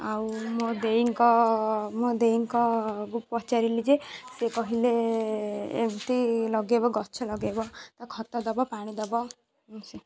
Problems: constant background noise, continuous background conversations